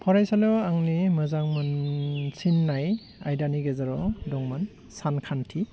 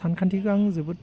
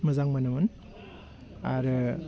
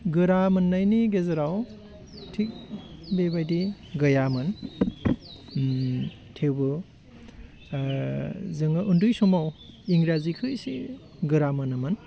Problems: constant background noise